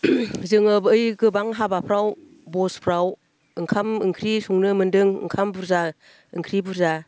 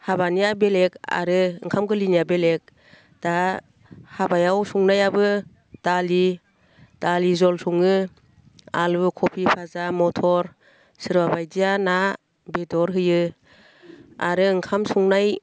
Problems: none marked